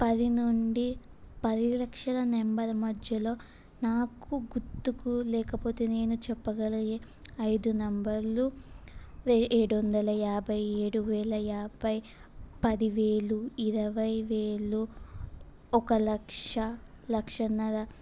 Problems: constant background noise